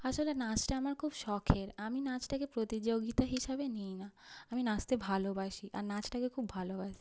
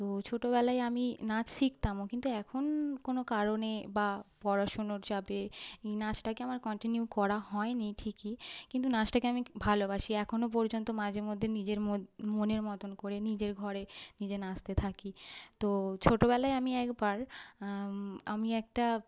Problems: background sounds at intervals